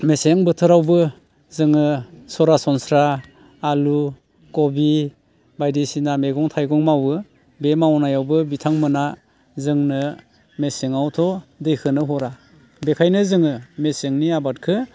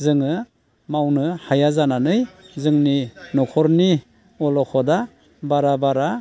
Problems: constant background noise